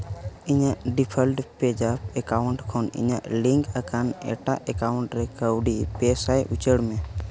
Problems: constant background noise